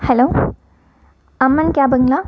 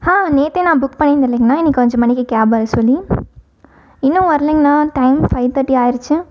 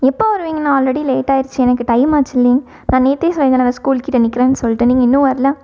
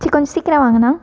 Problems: background sounds at intervals